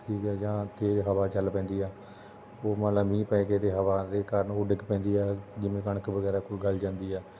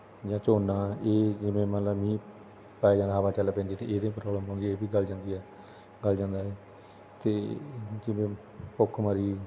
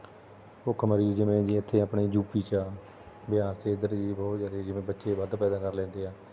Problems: constant background noise